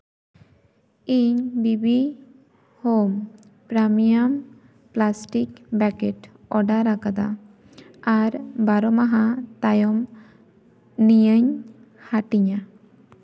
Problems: echo